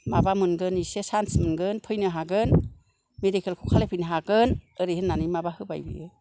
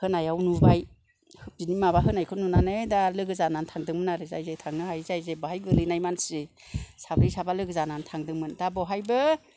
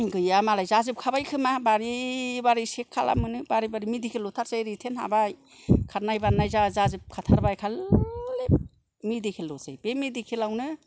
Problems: none marked